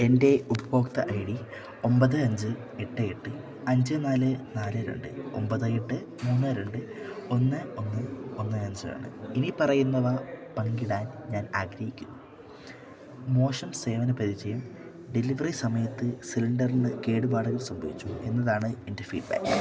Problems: none marked